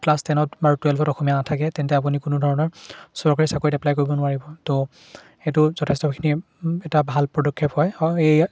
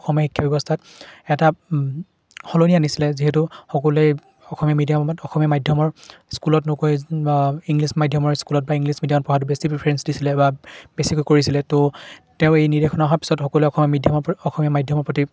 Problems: constant background noise, background conversations at intervals